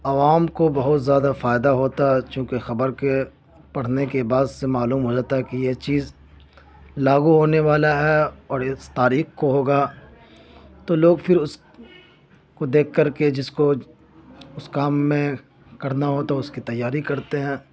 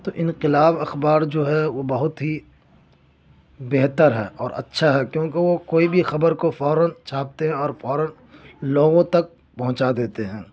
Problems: constant background noise